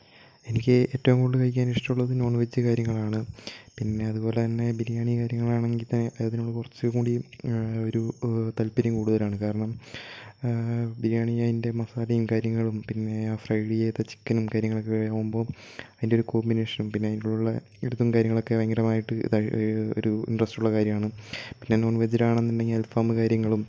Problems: none marked